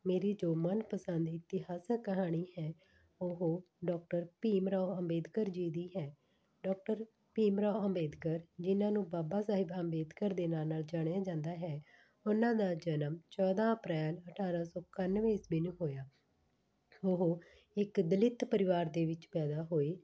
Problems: background sounds at intervals